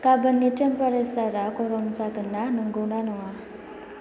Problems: constant background noise